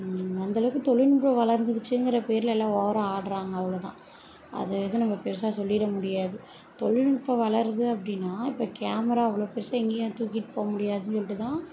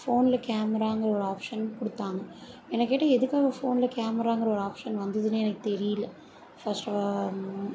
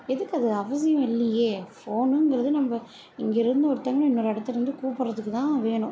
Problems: low volume